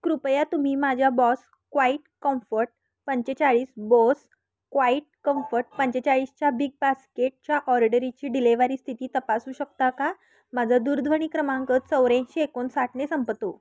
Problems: constant background noise